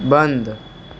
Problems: constant background noise